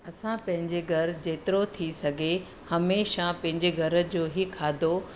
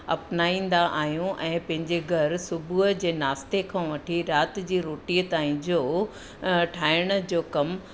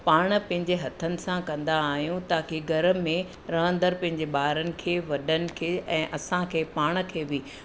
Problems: constant background noise